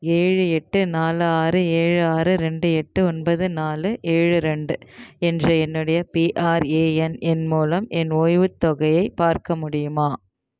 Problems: none marked